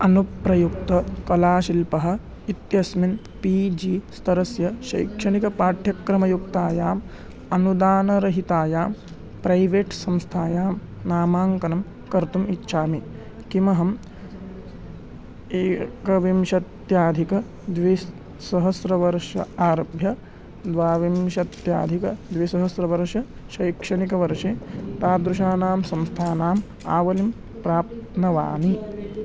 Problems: background sounds at intervals